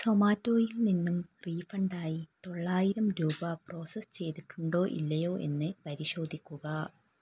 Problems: low volume